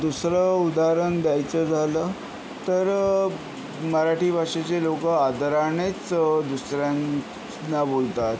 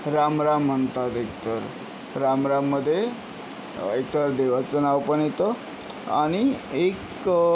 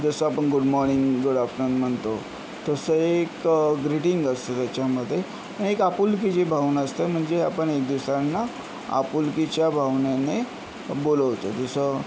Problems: constant background noise